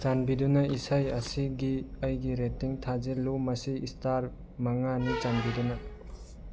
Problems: background sounds at intervals